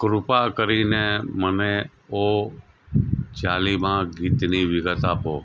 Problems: none marked